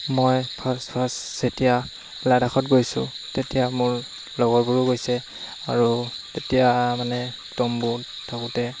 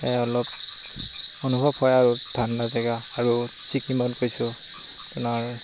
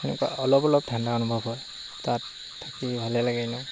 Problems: constant background noise